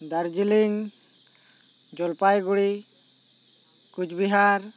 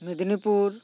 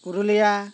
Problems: none marked